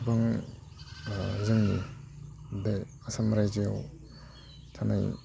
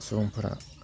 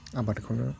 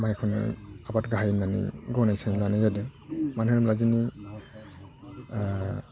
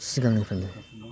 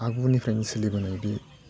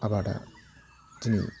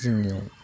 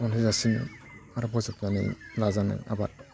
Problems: constant background noise